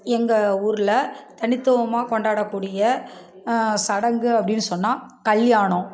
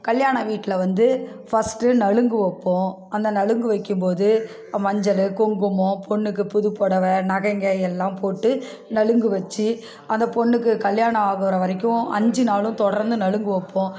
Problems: none marked